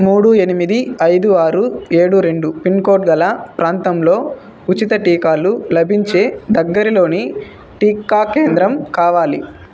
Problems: constant background noise